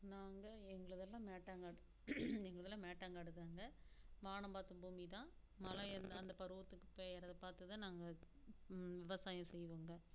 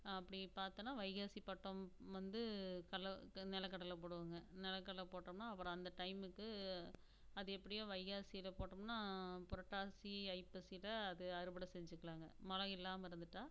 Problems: constant background noise, low volume